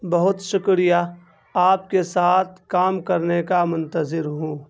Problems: none marked